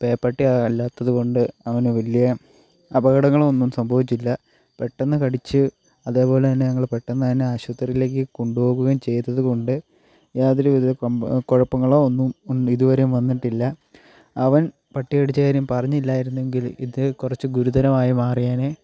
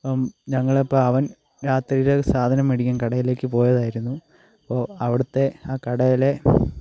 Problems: constant background noise, low volume